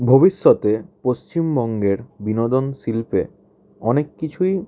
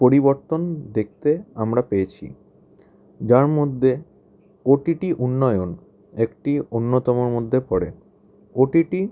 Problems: background sounds at intervals